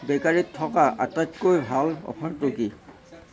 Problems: continuous background conversations